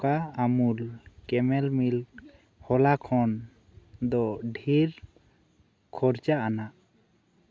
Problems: none marked